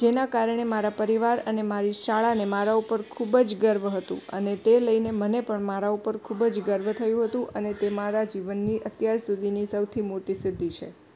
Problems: constant background noise